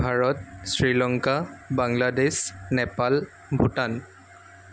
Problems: constant background noise